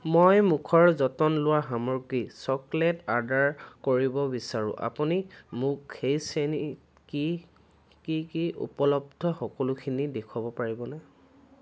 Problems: constant background noise